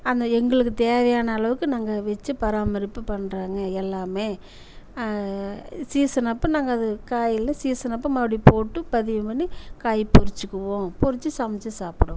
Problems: none marked